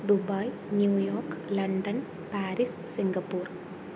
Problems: low volume